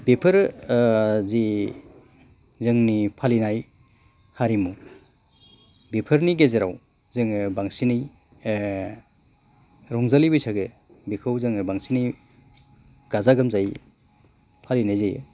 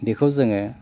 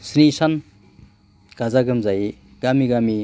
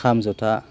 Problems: constant background noise